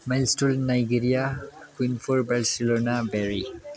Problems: none marked